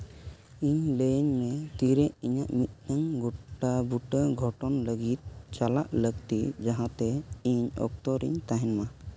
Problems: constant background noise